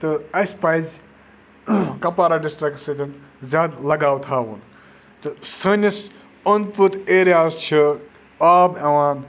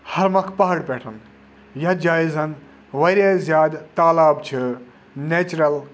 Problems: background sounds at intervals